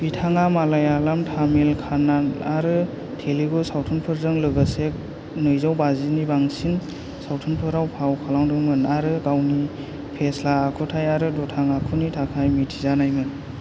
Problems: constant background noise